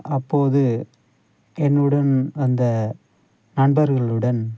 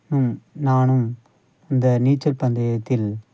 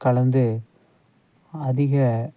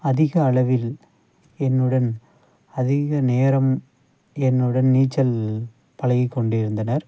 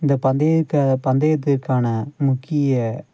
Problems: none marked